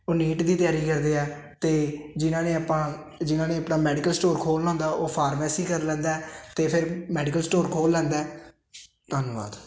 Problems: constant background noise